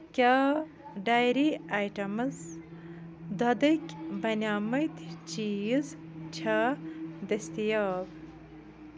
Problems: background sounds at intervals, background conversations at intervals